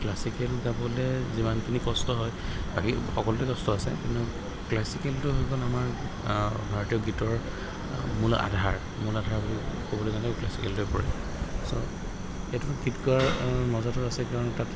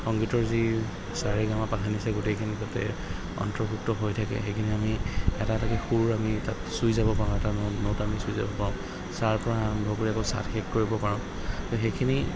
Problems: background sounds at intervals, background conversations at intervals